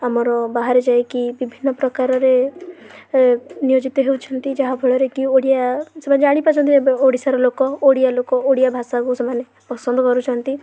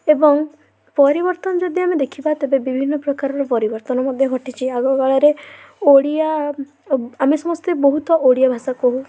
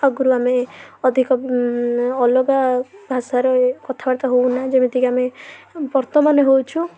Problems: constant background noise, continuous background conversations